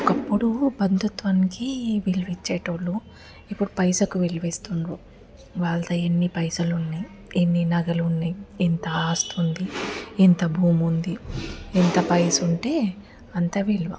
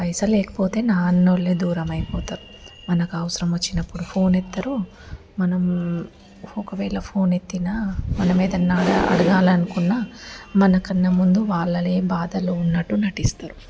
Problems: background sounds at intervals